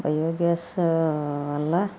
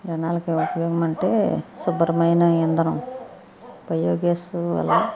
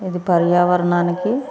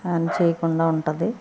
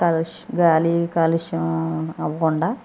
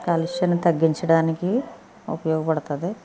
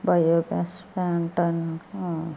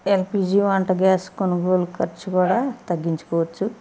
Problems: constant background noise